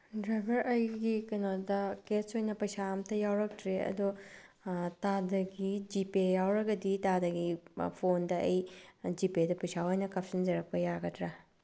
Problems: low volume